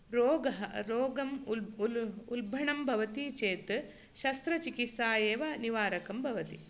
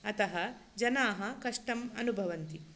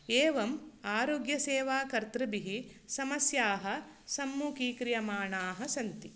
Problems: none marked